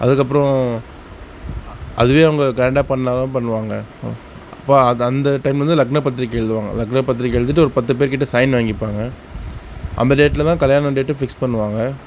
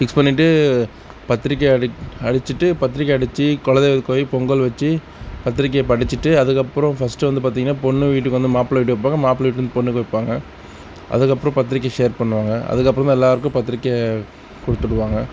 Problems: constant background noise, background conversations at intervals